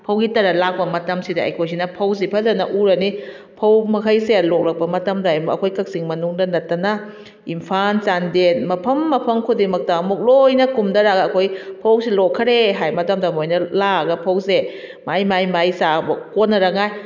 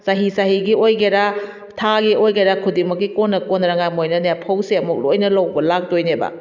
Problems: none marked